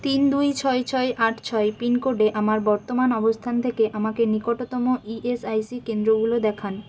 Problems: constant background noise